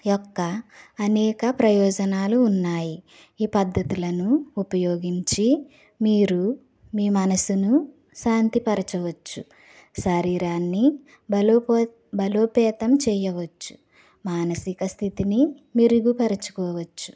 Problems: none marked